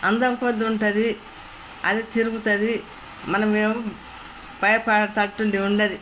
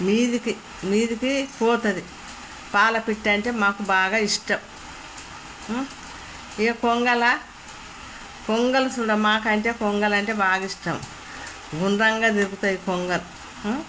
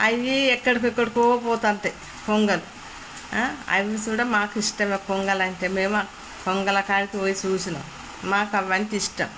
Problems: none marked